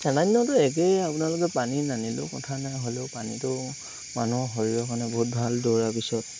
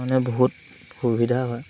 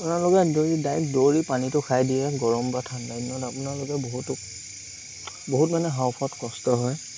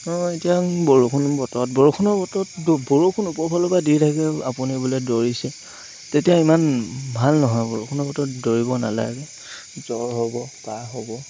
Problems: constant background noise